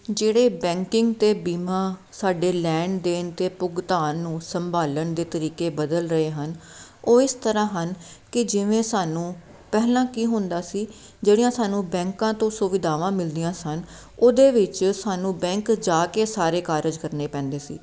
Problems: none marked